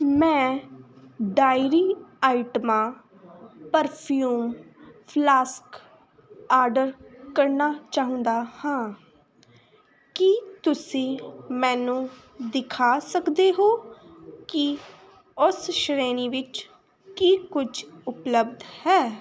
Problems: constant background noise